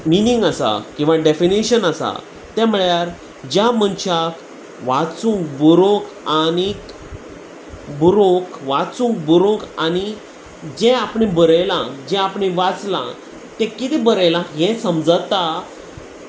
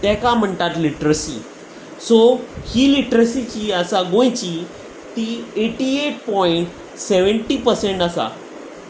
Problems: constant background noise